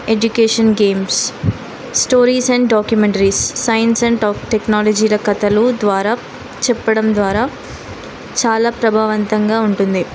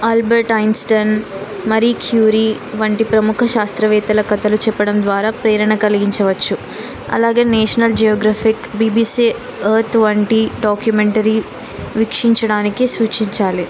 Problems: constant background noise